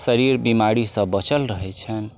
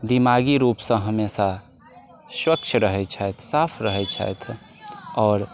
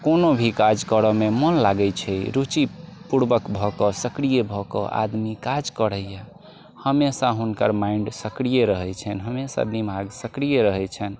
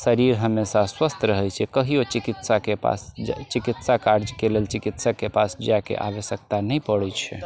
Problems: constant background noise